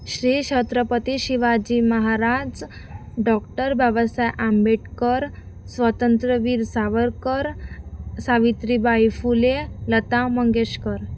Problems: background sounds at intervals